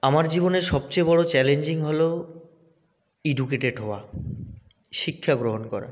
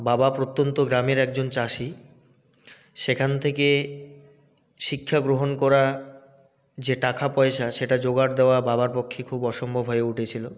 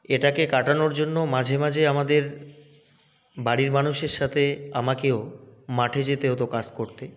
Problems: none marked